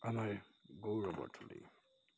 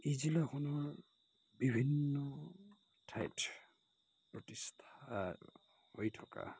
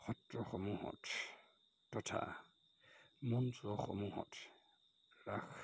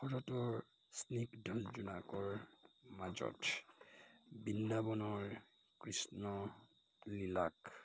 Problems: constant background noise